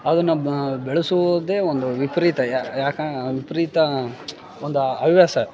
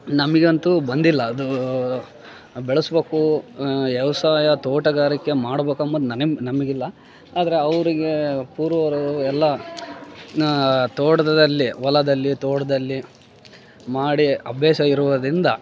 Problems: background sounds at intervals, background conversations at intervals